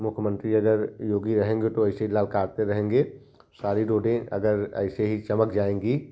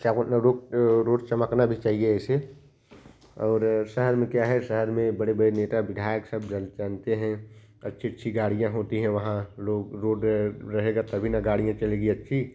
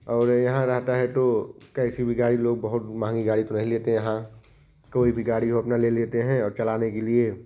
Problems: constant background noise